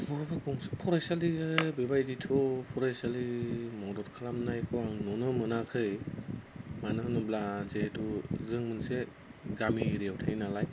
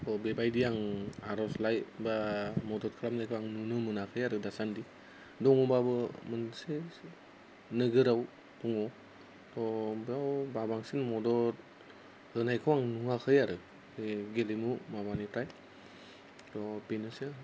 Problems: none marked